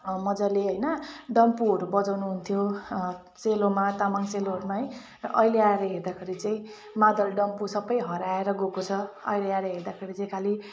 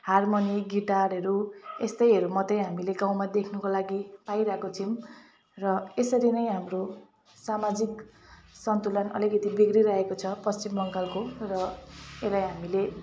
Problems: none marked